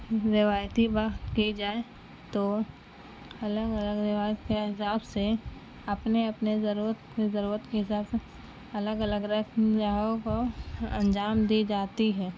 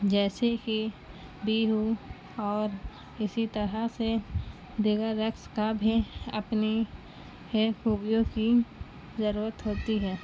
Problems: constant background noise